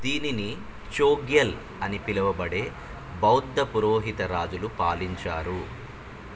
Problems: constant background noise